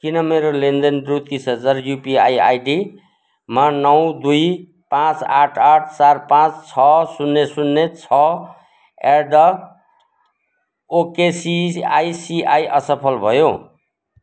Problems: constant background noise